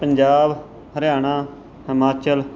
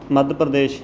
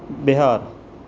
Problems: constant background noise